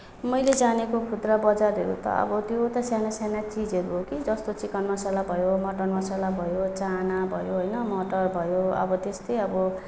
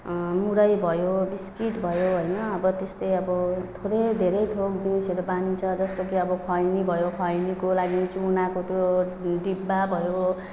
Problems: none marked